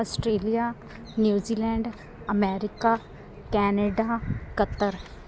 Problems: none marked